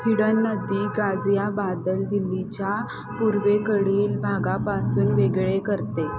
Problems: constant background noise